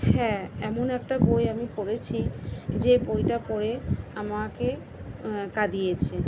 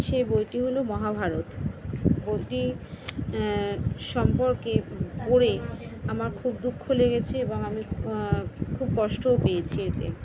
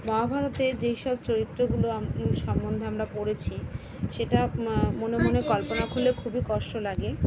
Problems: none marked